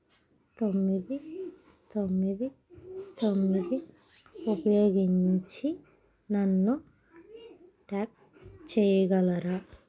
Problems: background sounds at intervals